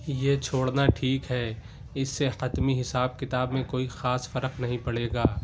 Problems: background sounds at intervals